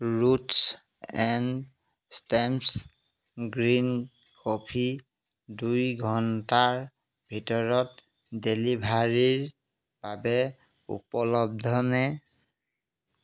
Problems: none marked